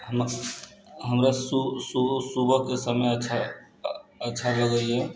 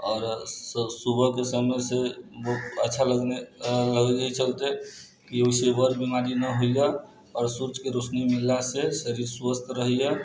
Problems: none marked